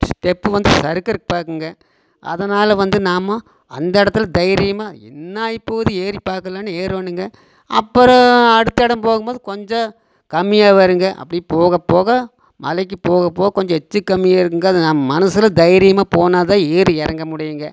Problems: constant background noise